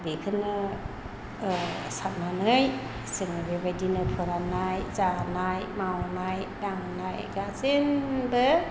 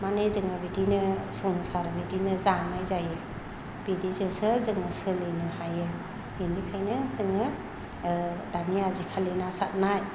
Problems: low volume